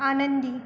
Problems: constant background noise, background conversations at intervals